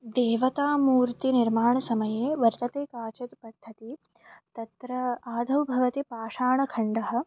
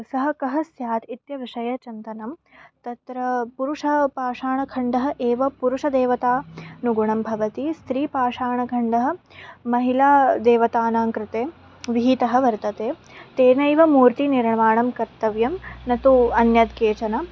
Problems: background sounds at intervals